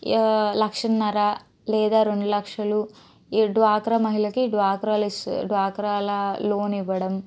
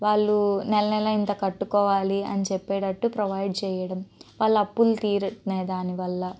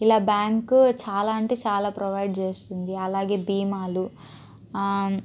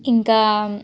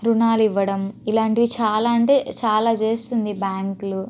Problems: none marked